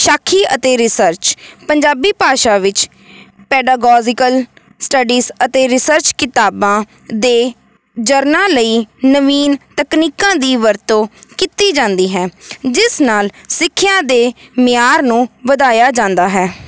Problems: none marked